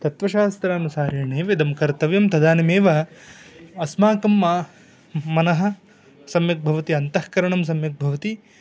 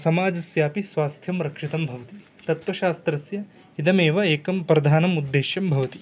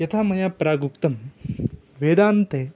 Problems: none marked